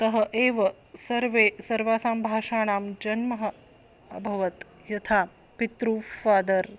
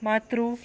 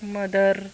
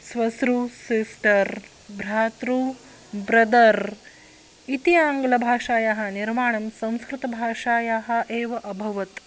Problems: constant background noise